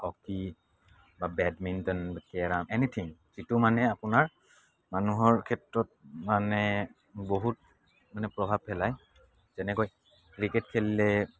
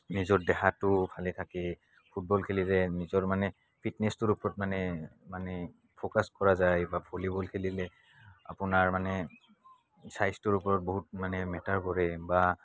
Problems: background sounds at intervals